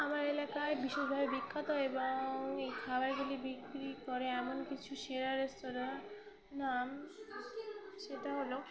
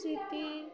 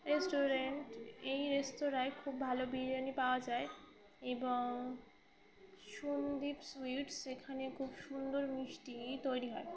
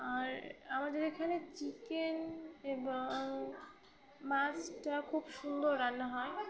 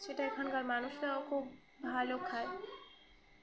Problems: continuous background conversations